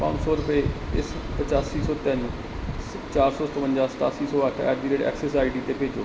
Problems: none marked